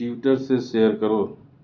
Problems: constant background noise, low volume